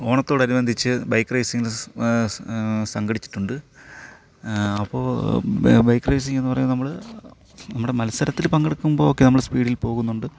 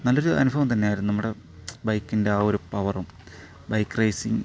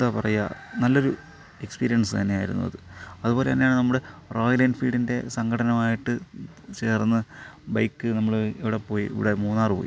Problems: none marked